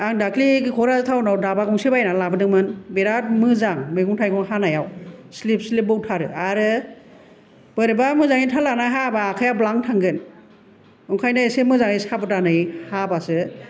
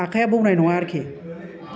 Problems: none marked